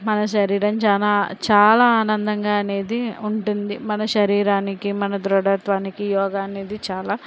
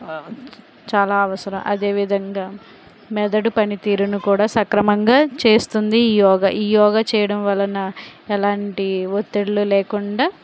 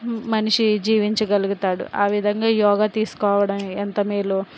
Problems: constant background noise